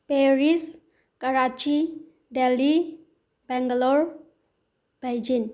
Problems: background sounds at intervals